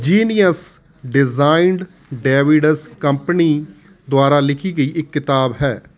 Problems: constant background noise